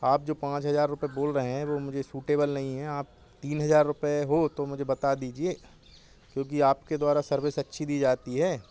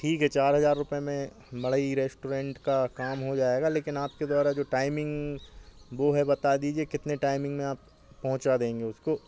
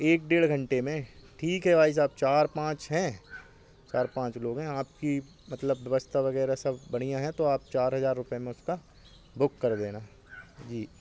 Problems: background sounds at intervals